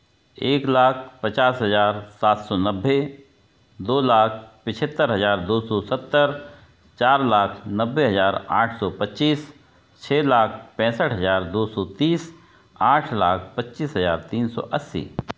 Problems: none marked